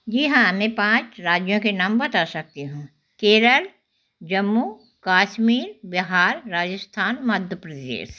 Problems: constant background noise